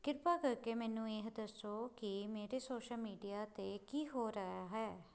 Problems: none marked